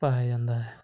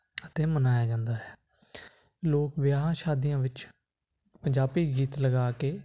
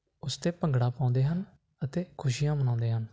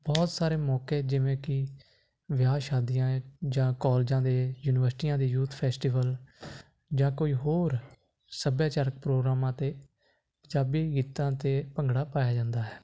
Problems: constant background noise